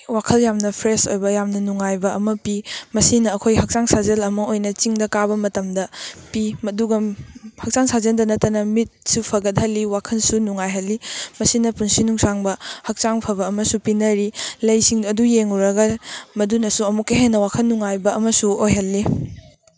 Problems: background sounds at intervals